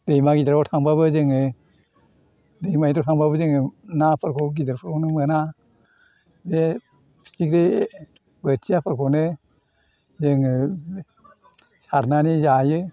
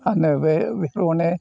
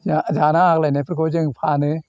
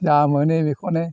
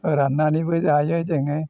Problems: constant background noise